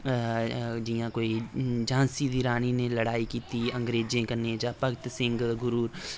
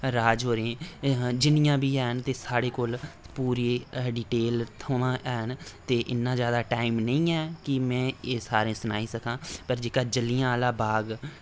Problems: none marked